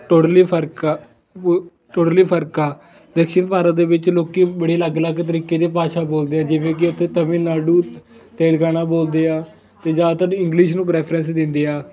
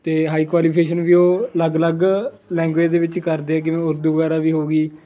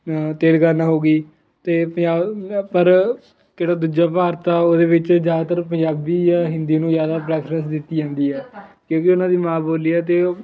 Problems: constant background noise